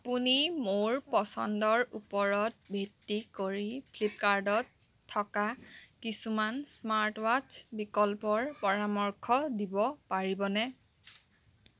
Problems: background conversations at intervals